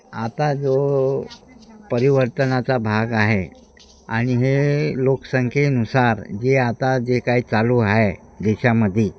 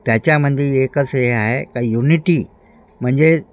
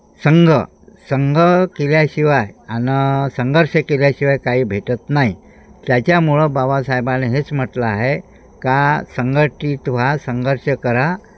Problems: none marked